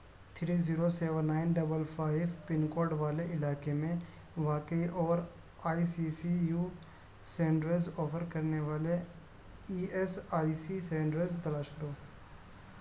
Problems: constant background noise